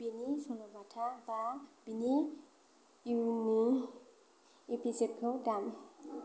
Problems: constant background noise